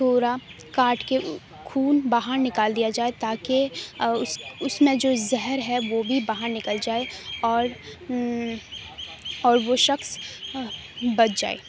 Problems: none marked